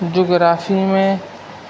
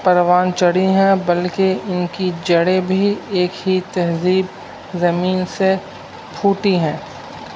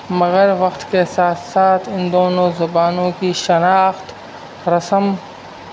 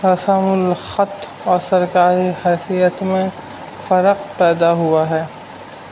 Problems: constant background noise